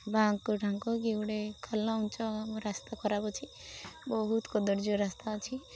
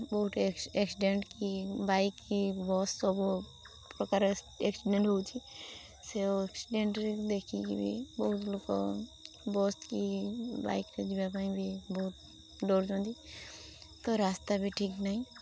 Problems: constant background noise